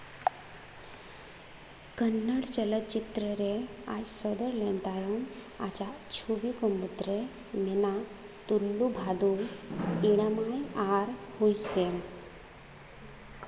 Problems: constant background noise